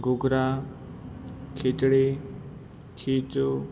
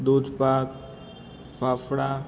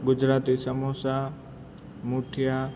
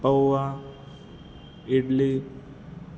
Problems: constant background noise